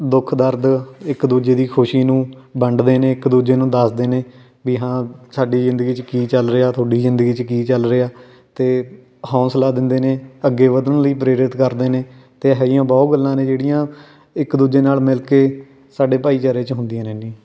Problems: none marked